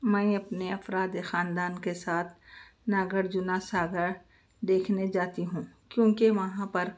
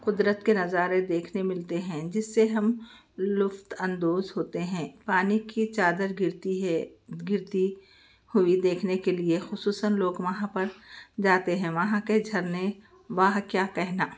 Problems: none marked